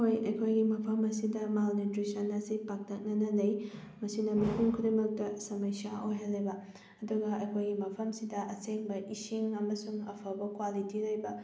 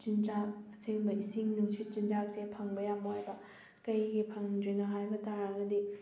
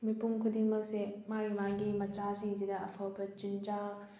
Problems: background sounds at intervals